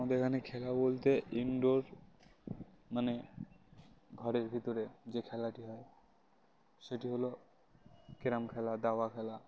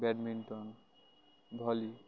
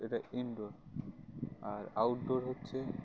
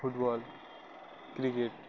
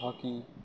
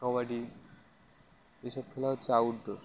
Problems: constant background noise